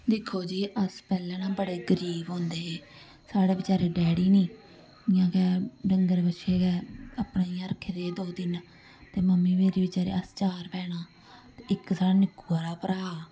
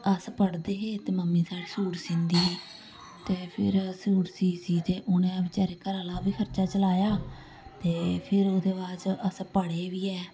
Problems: background sounds at intervals